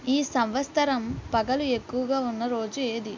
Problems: none marked